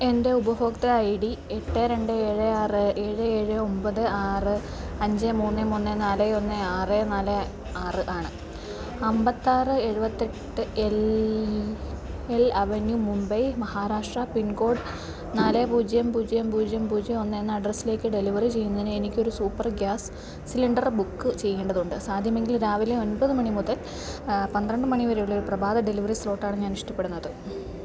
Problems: constant background noise, low volume